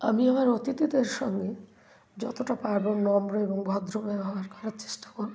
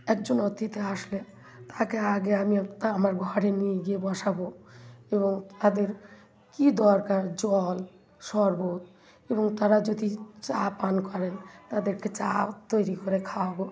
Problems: continuous background conversations